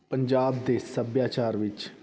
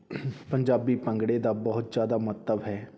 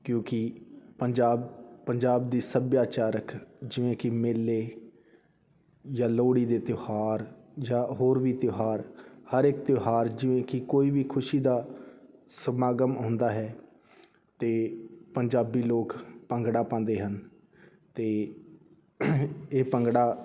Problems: background conversations at intervals